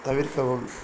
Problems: constant background noise